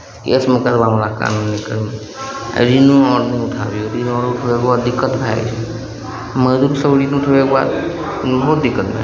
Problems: background sounds at intervals